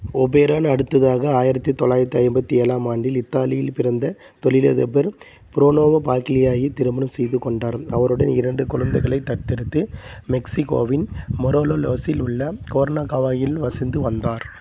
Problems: constant background noise